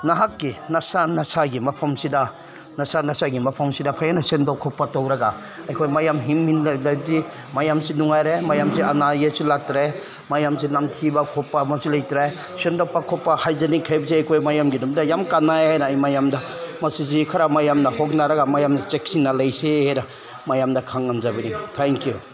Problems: none marked